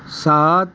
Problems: constant background noise